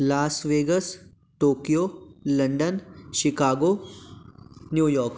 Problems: constant background noise